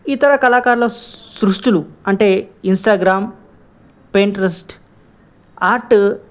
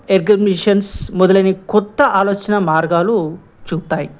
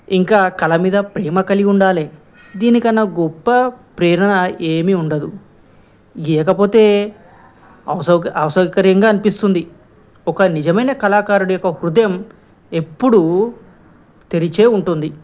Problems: none marked